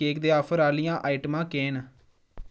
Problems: none marked